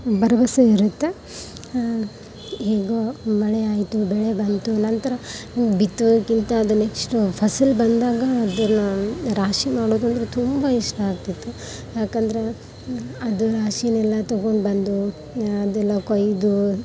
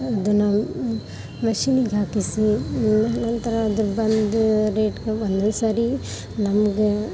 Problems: background sounds at intervals, background conversations at intervals